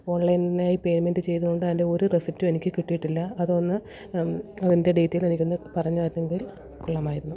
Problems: background sounds at intervals, background conversations at intervals, low volume